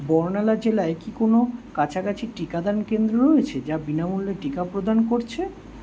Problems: constant background noise